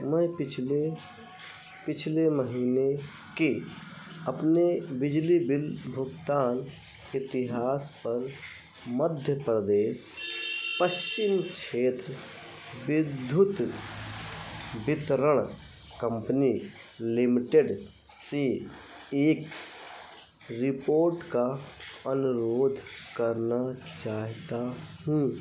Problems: none marked